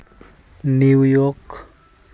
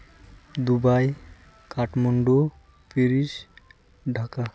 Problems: constant background noise